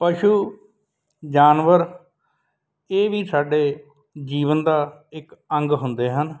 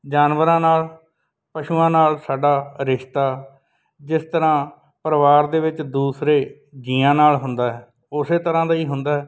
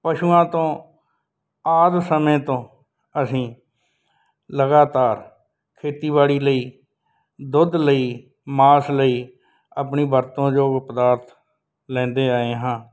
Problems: background sounds at intervals